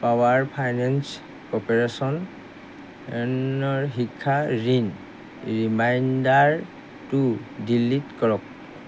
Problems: none marked